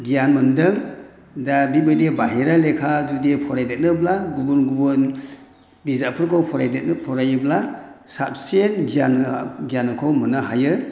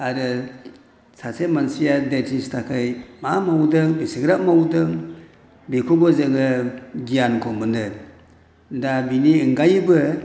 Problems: none marked